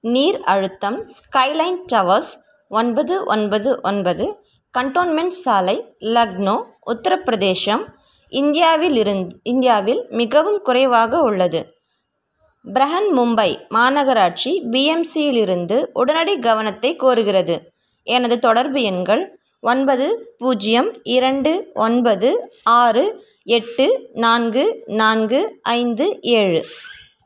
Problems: background sounds at intervals